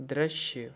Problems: background sounds at intervals